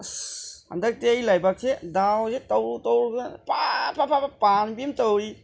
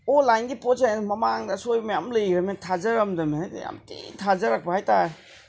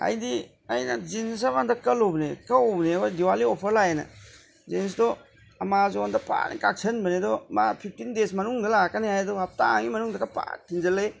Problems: none marked